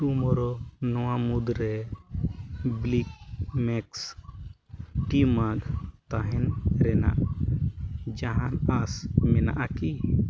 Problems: constant background noise